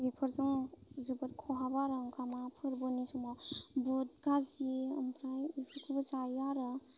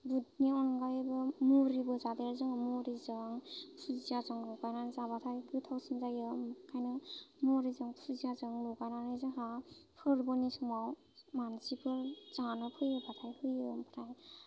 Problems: none marked